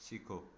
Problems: background sounds at intervals